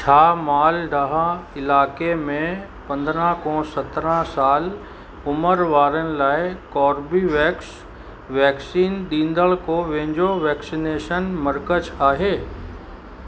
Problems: constant background noise, echo